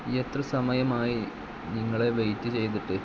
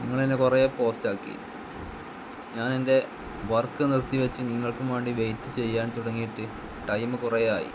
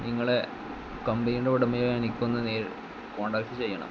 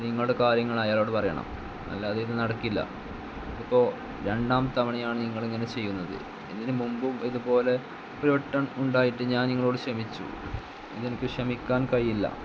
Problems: constant background noise